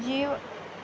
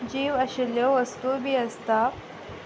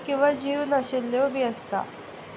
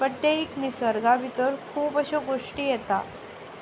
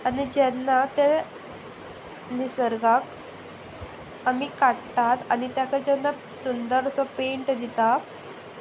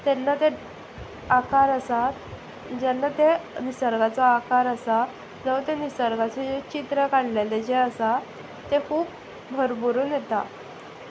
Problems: background sounds at intervals